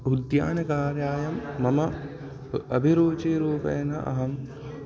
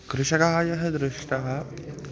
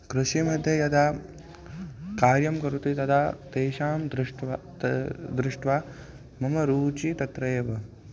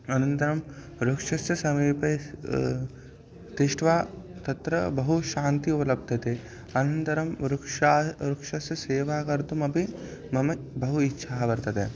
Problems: constant background noise, continuous background conversations